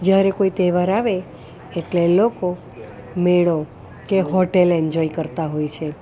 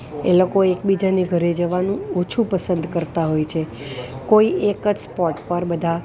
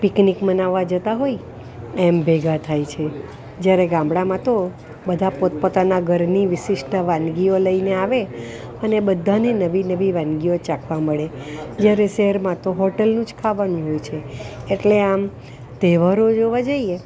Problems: constant background noise